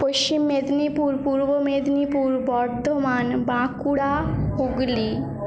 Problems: background conversations at intervals